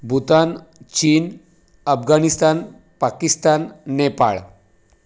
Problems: none marked